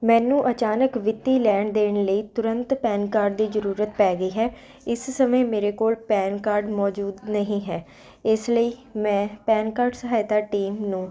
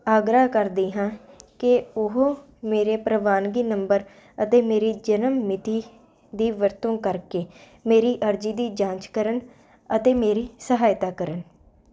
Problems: constant background noise